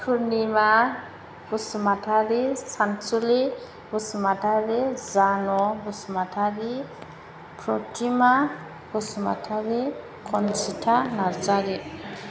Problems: constant background noise